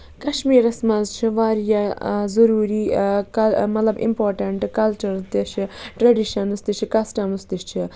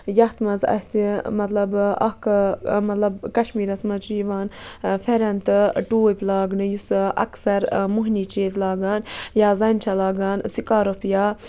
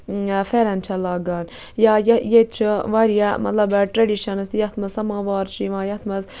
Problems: constant background noise